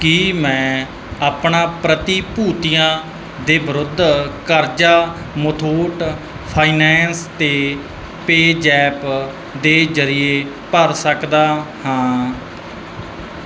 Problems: none marked